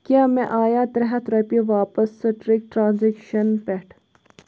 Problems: background sounds at intervals